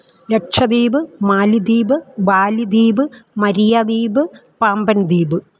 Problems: none marked